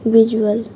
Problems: constant background noise, background conversations at intervals